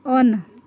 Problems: continuous background conversations